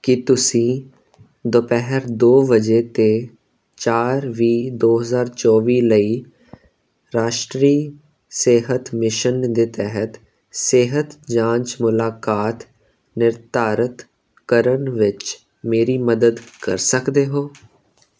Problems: none marked